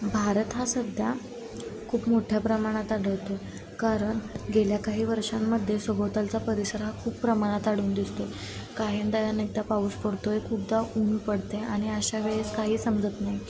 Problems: constant background noise, continuous background conversations